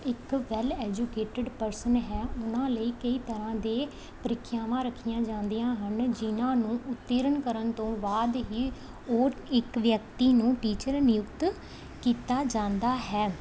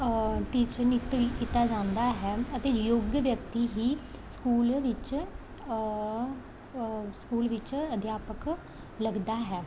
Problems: background sounds at intervals